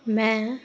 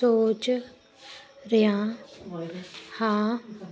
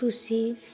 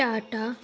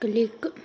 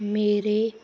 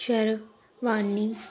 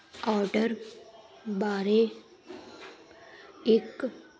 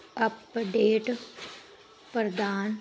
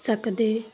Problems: background conversations at intervals